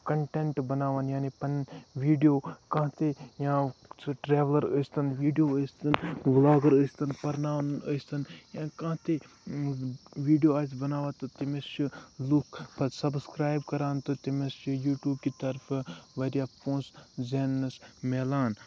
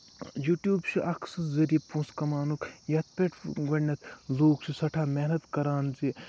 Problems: constant background noise, low volume